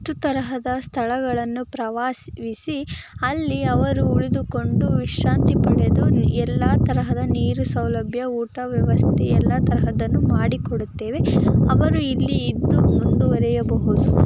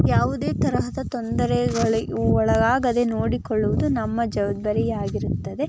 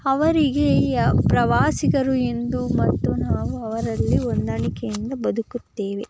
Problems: constant background noise